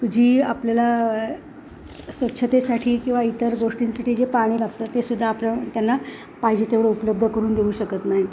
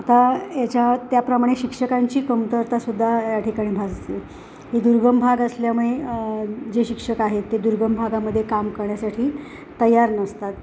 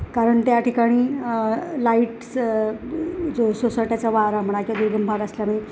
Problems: constant background noise